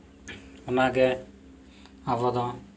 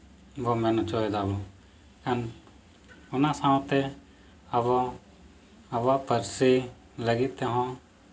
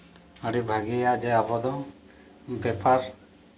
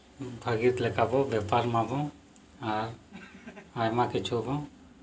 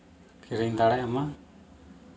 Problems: background sounds at intervals